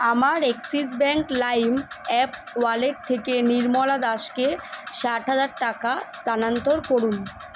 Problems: constant background noise